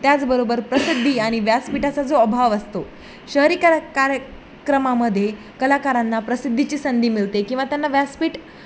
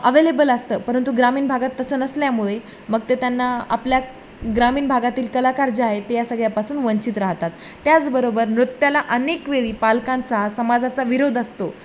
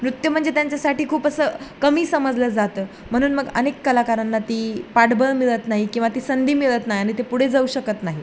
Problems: none marked